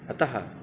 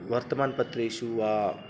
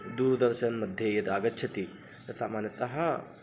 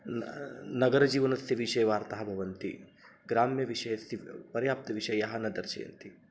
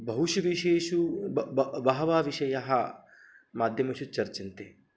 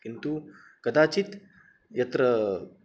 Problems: constant background noise